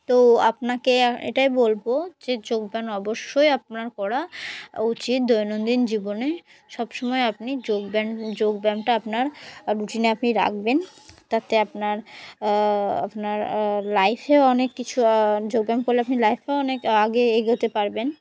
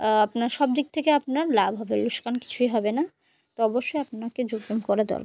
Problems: constant background noise, continuous background conversations